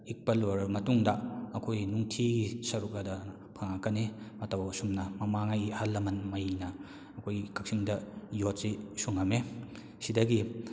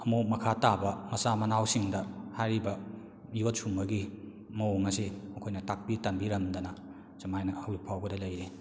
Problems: none marked